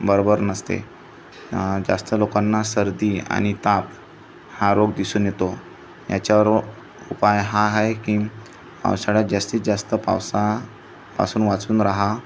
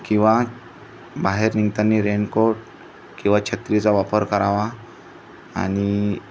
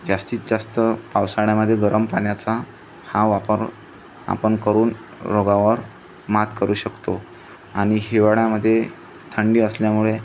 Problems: constant background noise, continuous background conversations